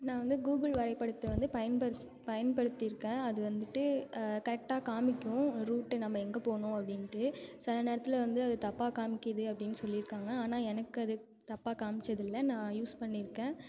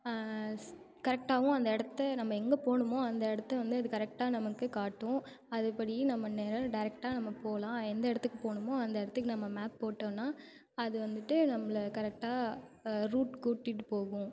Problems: none marked